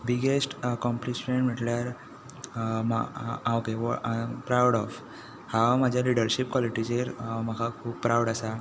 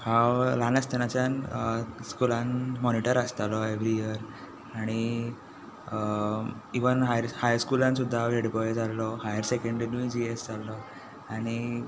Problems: none marked